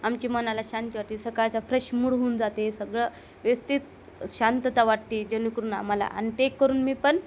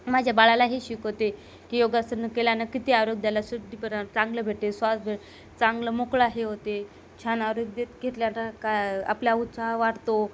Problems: constant background noise